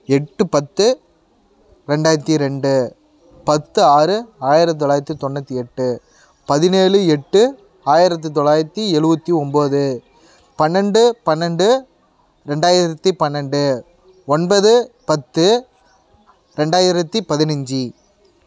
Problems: constant background noise